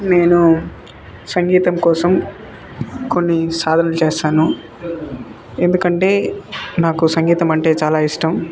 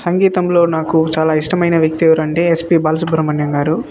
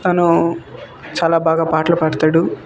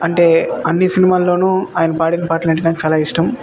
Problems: constant background noise, continuous background conversations